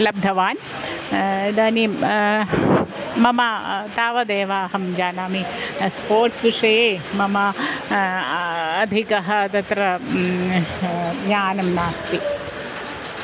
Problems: constant background noise